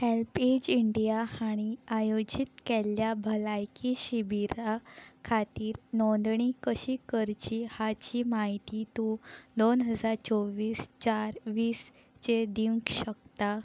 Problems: none marked